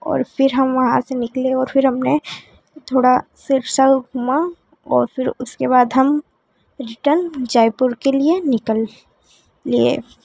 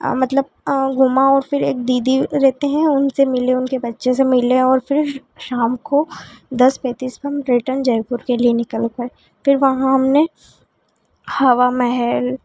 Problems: none marked